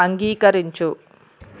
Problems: constant background noise